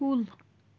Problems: constant background noise